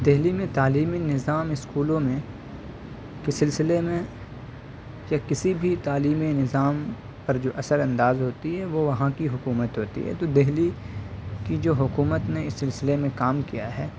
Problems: background sounds at intervals